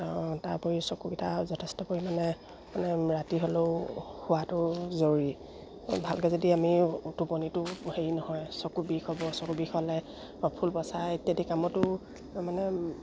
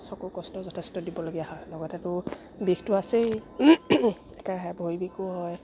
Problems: none marked